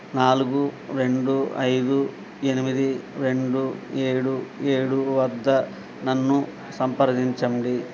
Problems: none marked